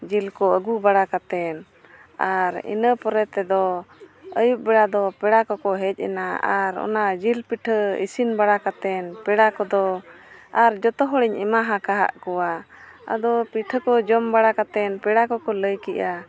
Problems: background sounds at intervals, background conversations at intervals